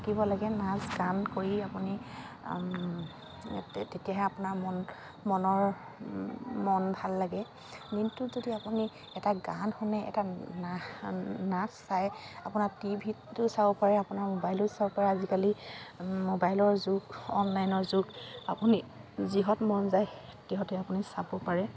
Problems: constant background noise